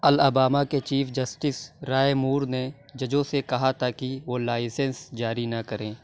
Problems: constant background noise